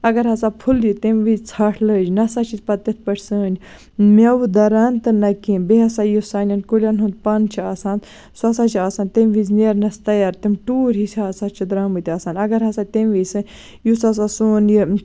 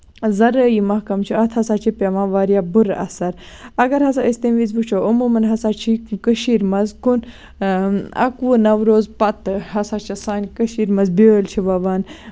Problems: none marked